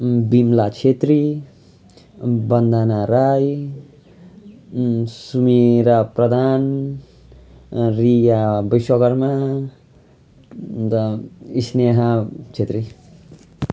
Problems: none marked